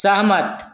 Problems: none marked